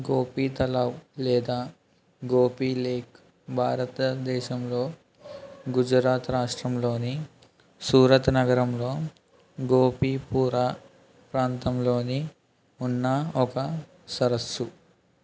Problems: background sounds at intervals